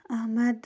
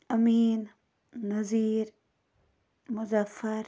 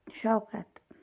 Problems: none marked